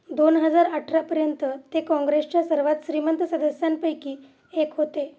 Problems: constant background noise, background conversations at intervals